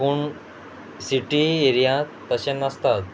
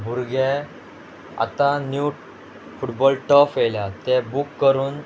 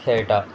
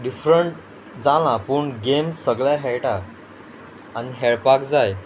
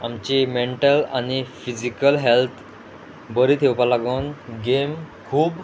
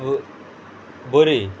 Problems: background sounds at intervals